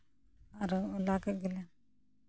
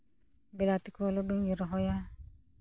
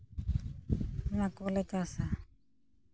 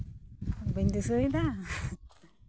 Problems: none marked